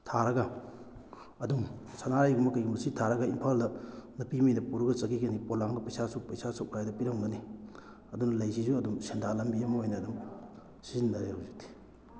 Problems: background sounds at intervals